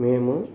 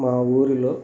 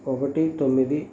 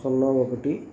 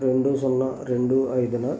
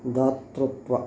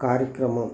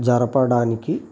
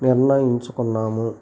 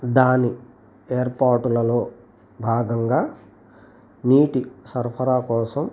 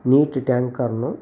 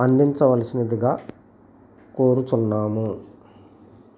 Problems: constant background noise